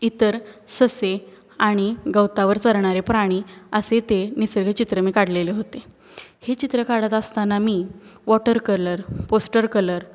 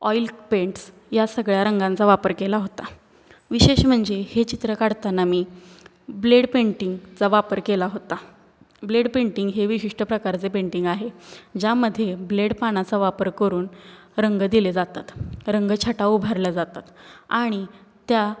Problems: background sounds at intervals